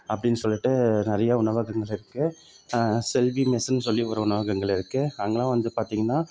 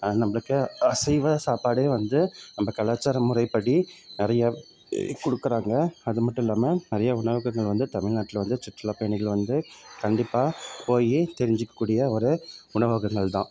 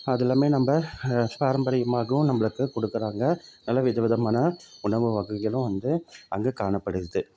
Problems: background sounds at intervals